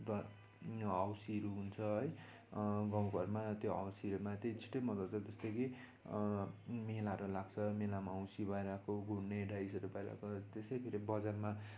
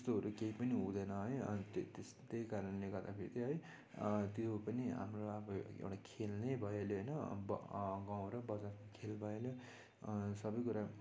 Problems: none marked